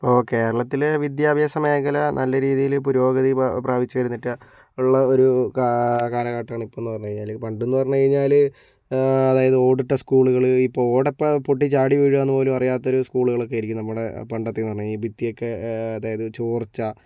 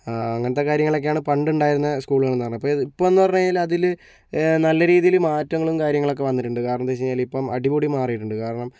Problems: none marked